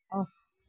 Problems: constant background noise